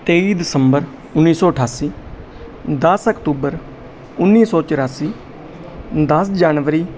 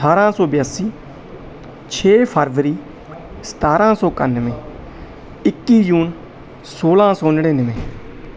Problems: none marked